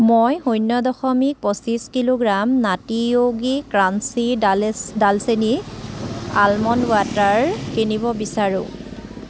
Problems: background sounds at intervals